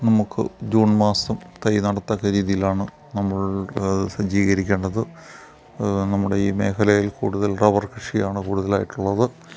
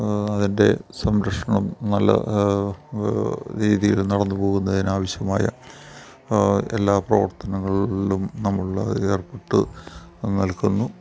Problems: none marked